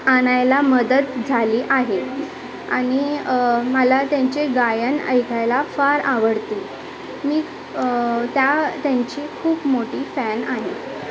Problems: constant background noise, continuous background conversations